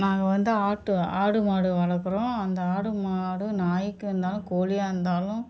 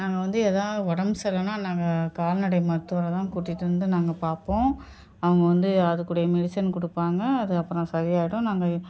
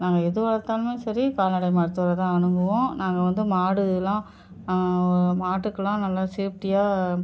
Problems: background sounds at intervals